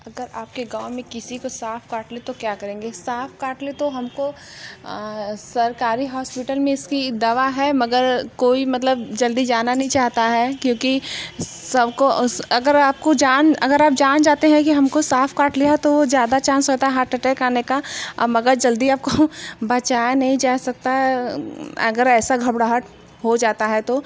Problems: constant background noise